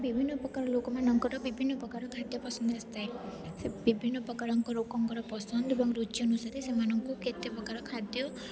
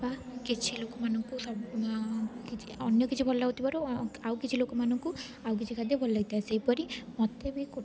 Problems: constant background noise, continuous background conversations